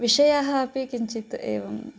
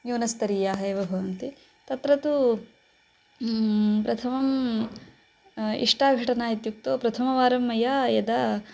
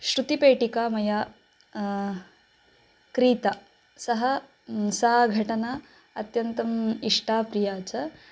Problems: background sounds at intervals